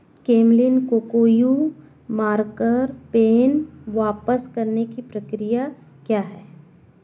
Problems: background sounds at intervals